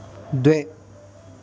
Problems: constant background noise